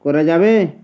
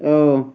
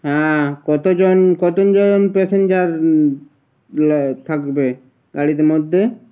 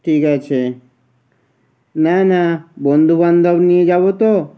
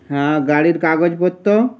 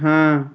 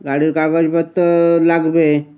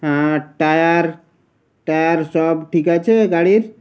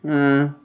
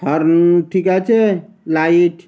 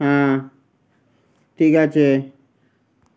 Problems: background sounds at intervals